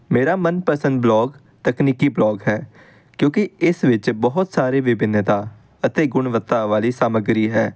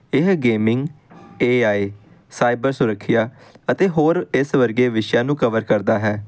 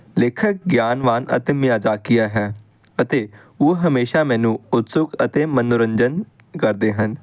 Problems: background sounds at intervals